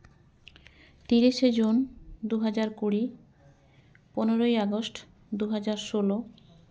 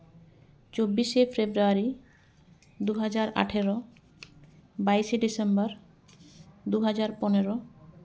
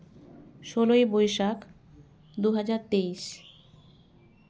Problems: none marked